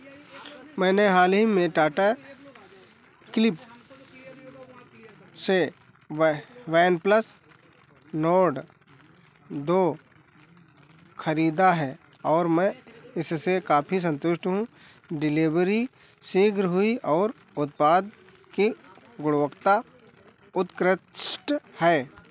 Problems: background sounds at intervals